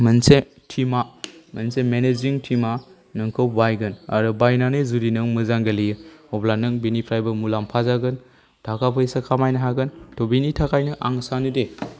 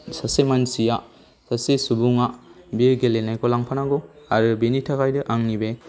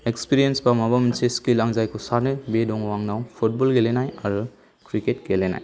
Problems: none marked